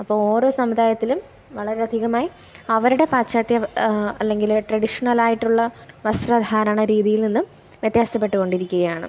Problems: none marked